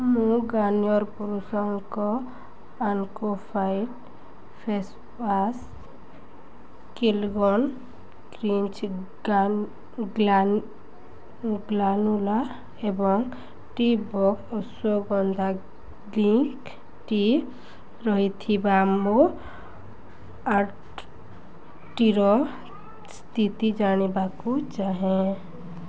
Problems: constant background noise, continuous background conversations